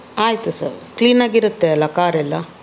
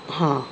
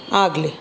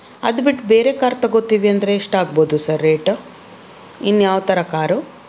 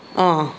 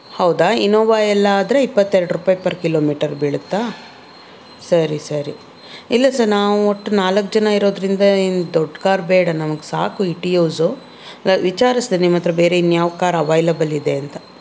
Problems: none marked